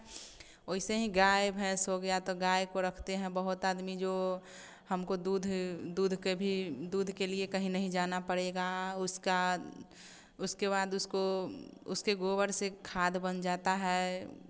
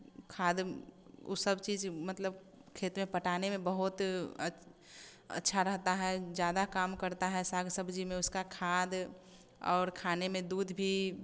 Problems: none marked